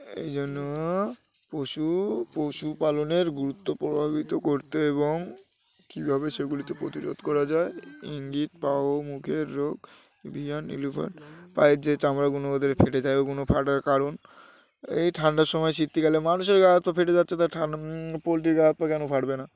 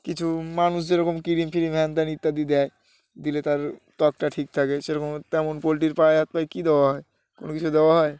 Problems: background sounds at intervals, background conversations at intervals